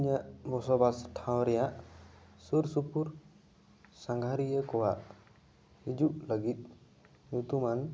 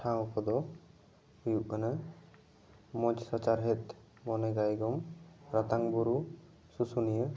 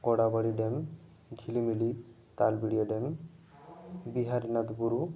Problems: background conversations at intervals